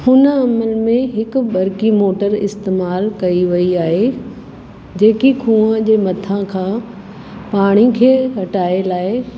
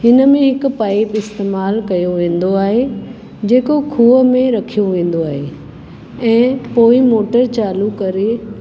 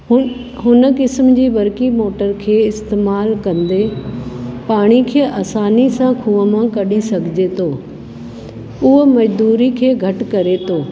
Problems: constant background noise, background conversations at intervals